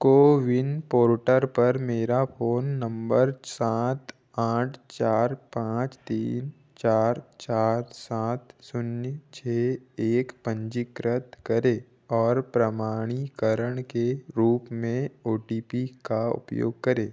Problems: background sounds at intervals